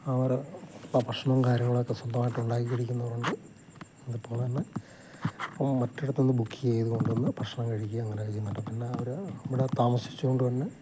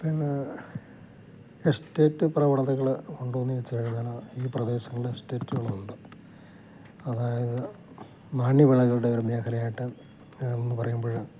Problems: none marked